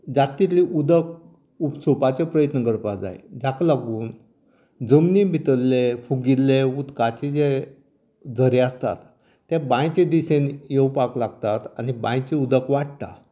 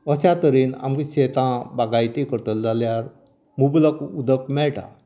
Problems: none marked